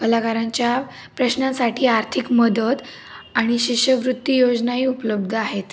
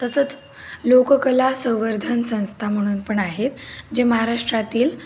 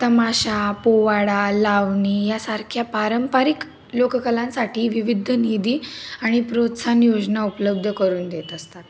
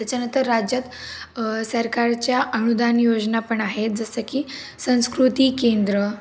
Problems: background sounds at intervals